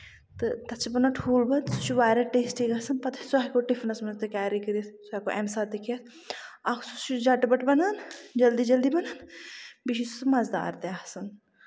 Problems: constant background noise, low volume